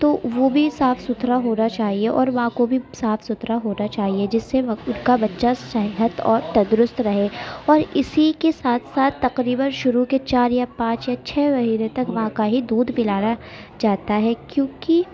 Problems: constant background noise, continuous background conversations